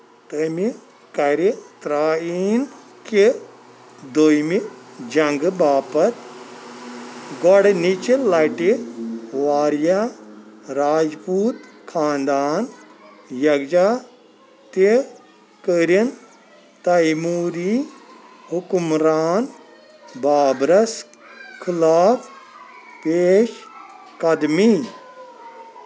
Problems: constant background noise